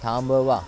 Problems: constant background noise